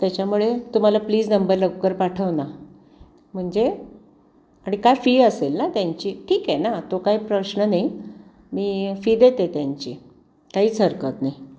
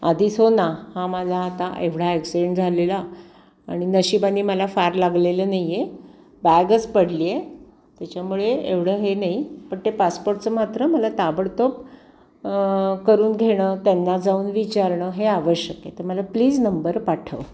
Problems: constant background noise